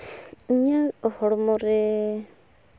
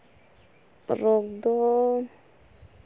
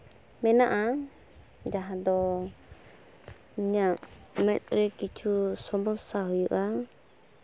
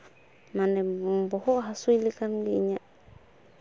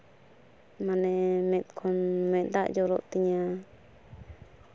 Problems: background sounds at intervals